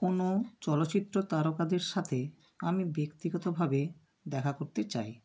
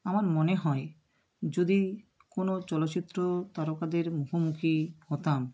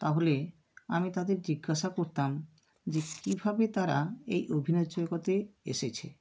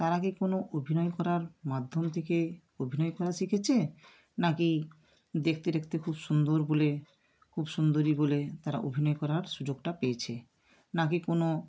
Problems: none marked